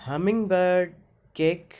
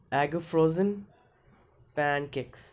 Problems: constant background noise